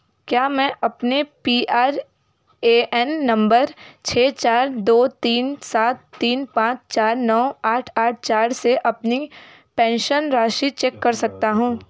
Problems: constant background noise, background conversations at intervals